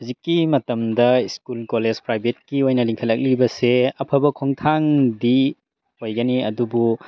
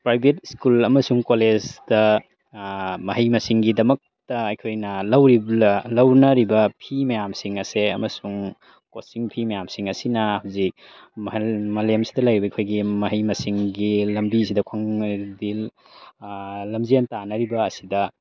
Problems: background sounds at intervals